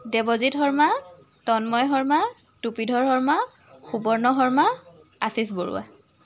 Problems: background sounds at intervals, continuous background conversations